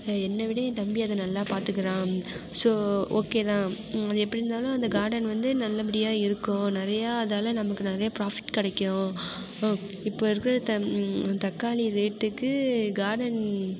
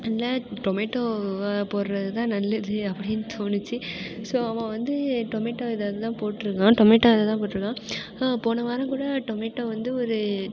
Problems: constant background noise